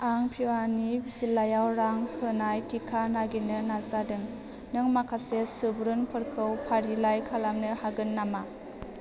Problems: none marked